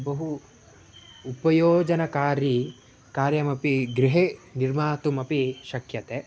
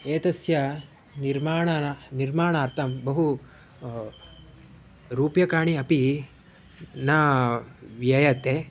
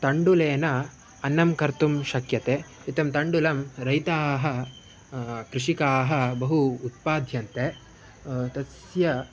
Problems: none marked